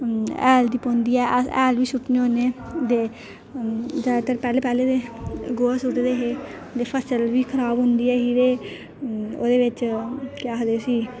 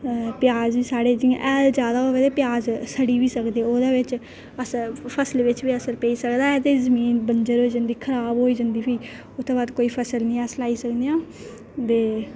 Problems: none marked